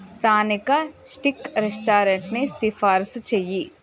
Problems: none marked